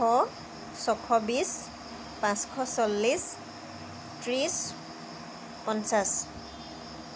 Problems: constant background noise